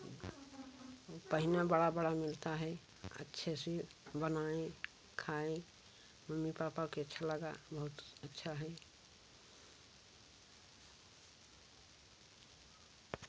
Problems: none marked